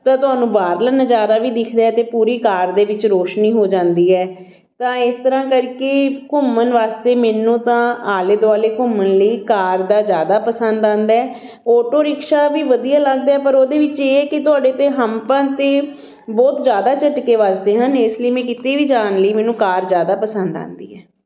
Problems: none marked